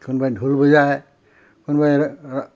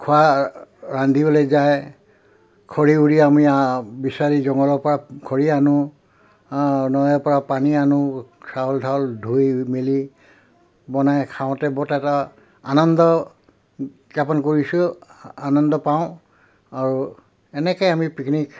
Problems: background sounds at intervals